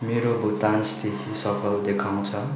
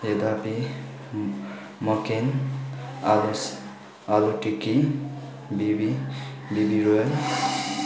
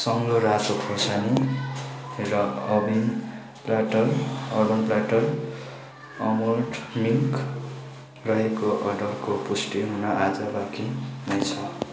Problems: background conversations at intervals